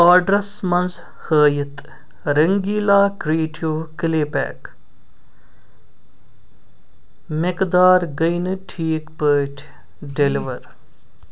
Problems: none marked